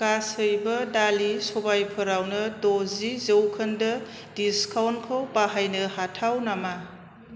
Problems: constant background noise